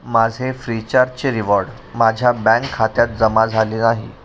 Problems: none marked